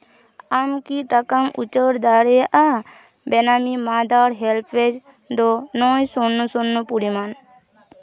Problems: continuous background conversations